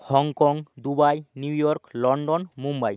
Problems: background sounds at intervals